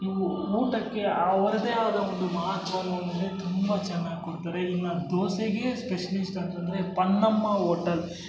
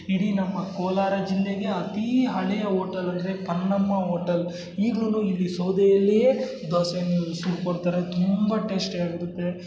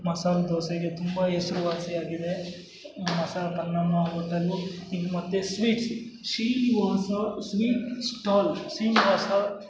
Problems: none marked